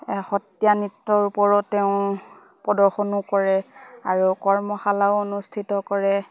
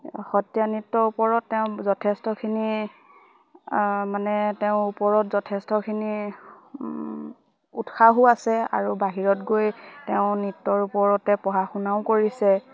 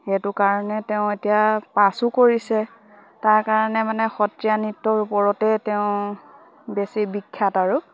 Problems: constant background noise, background conversations at intervals